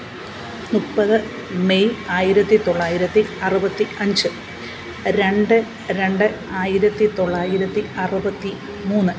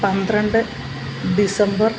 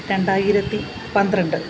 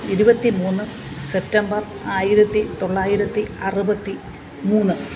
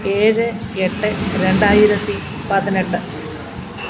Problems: constant background noise